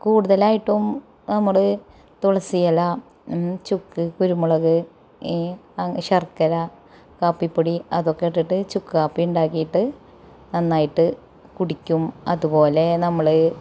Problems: none marked